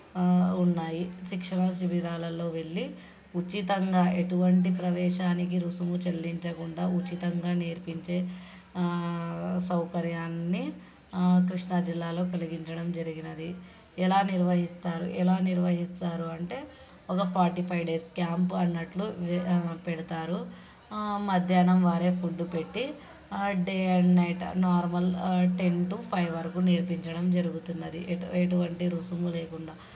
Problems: background sounds at intervals, background conversations at intervals